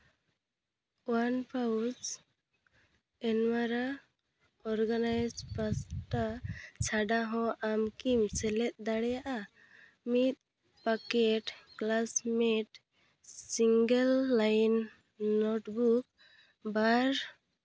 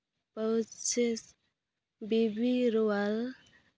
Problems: constant background noise